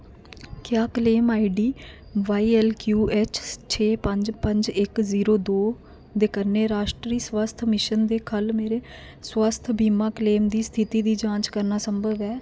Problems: constant background noise